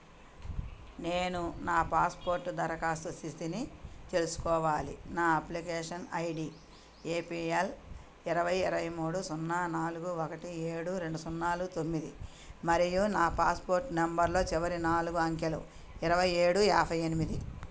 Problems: none marked